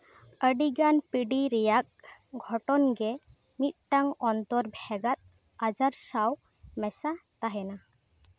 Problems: none marked